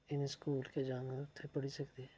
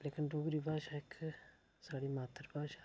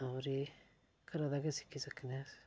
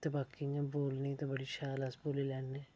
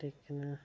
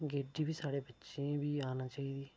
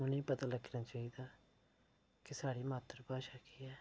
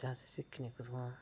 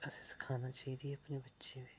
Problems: low volume